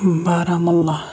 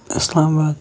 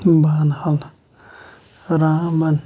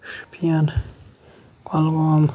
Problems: low volume